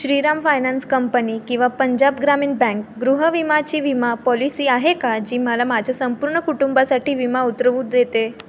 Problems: constant background noise